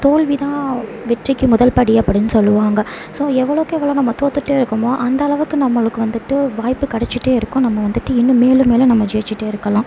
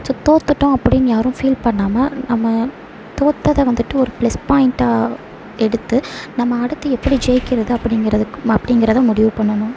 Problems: background sounds at intervals